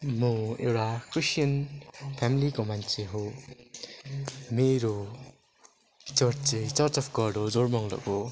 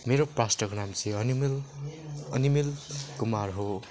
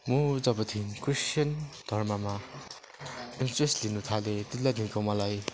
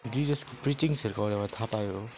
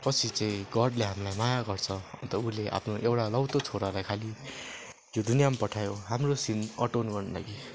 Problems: background sounds at intervals